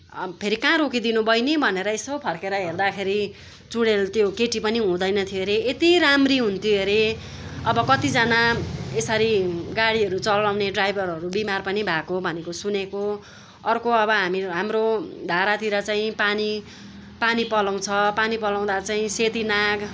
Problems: none marked